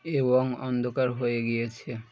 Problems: constant background noise